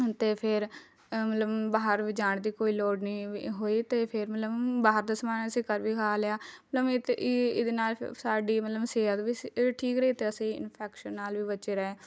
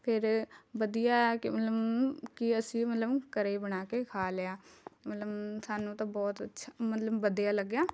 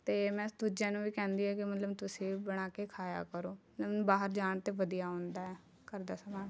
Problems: none marked